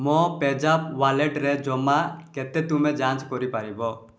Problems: none marked